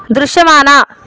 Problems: constant background noise